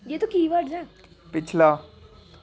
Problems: constant background noise, background conversations at intervals